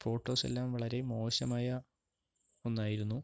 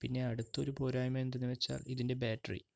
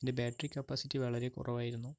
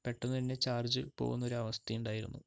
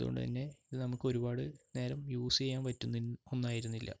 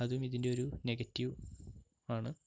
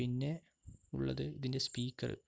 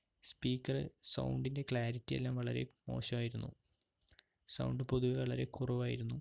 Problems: background sounds at intervals, low volume